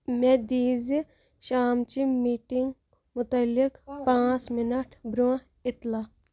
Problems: none marked